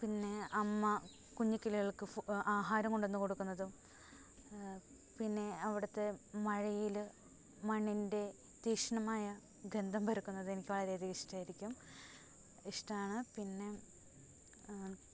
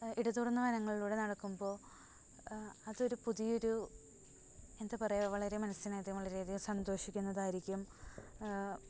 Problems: low volume